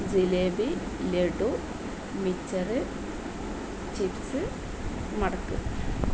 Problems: none marked